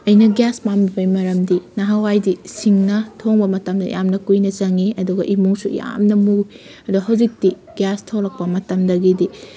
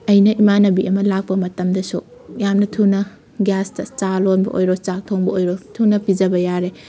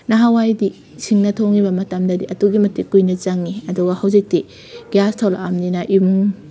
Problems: background sounds at intervals